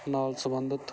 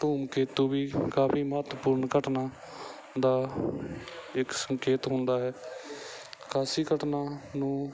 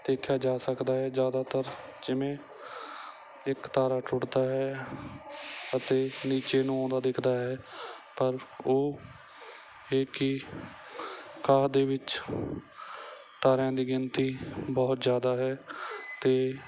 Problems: none marked